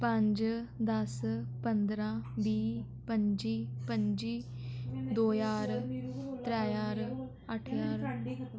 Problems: constant background noise, background conversations at intervals